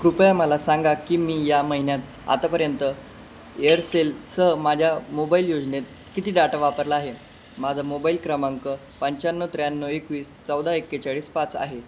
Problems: none marked